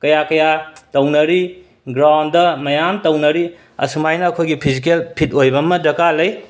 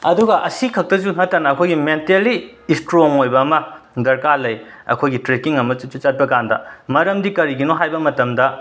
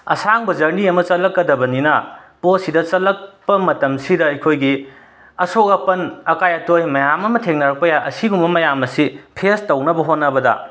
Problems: background sounds at intervals, background conversations at intervals